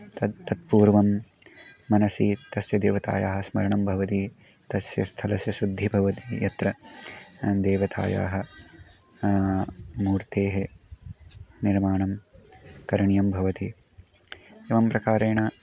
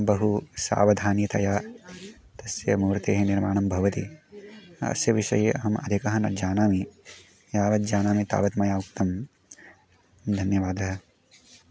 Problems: background sounds at intervals